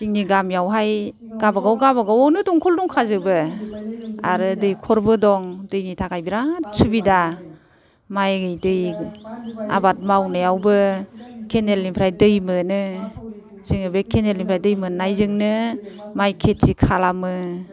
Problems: none marked